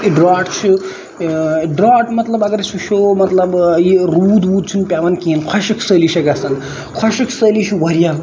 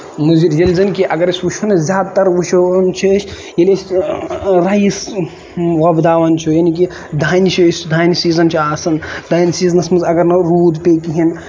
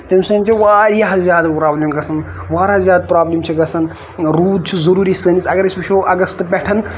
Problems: constant background noise